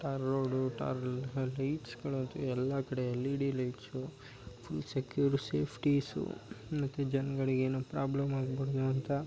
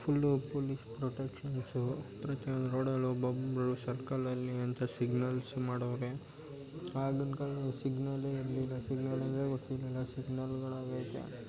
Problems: background sounds at intervals